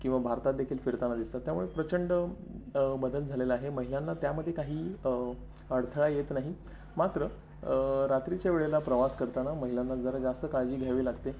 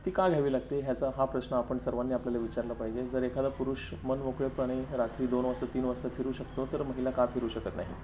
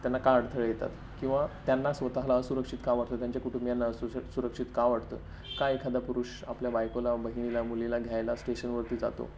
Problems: none marked